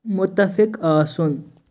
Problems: constant background noise